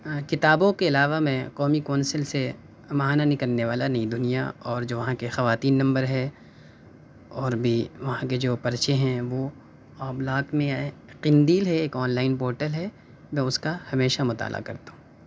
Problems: none marked